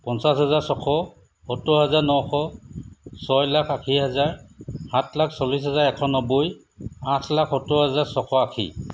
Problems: none marked